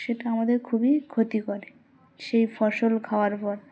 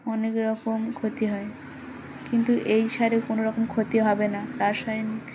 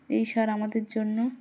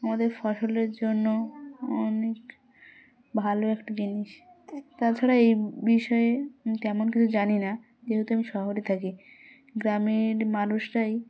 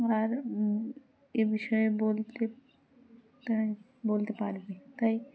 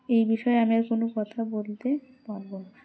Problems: constant background noise